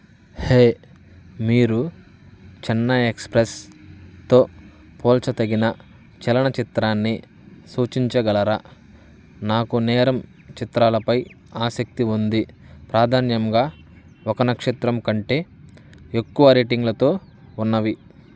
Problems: none marked